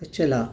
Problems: none marked